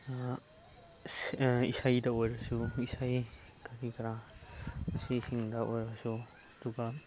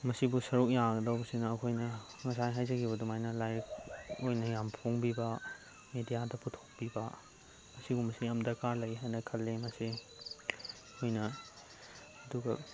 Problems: constant background noise, low volume